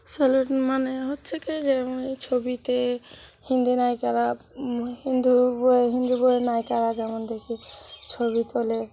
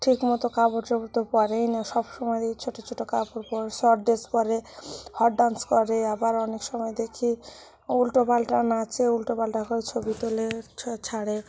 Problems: background sounds at intervals